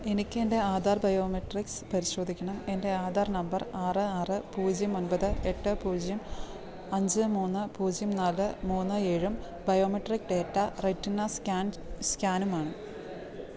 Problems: none marked